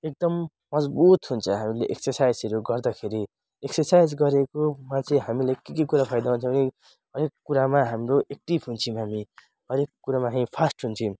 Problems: none marked